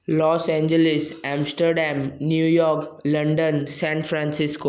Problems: background sounds at intervals, echo